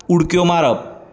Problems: none marked